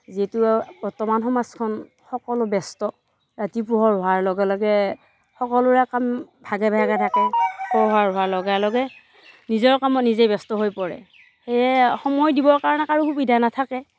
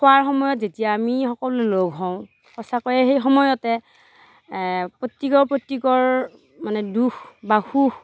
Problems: none marked